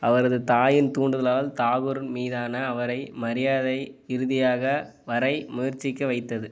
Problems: background sounds at intervals